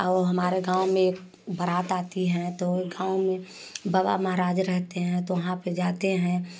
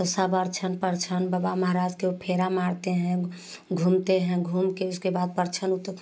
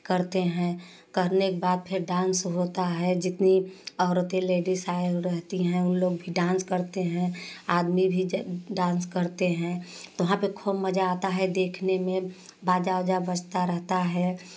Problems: none marked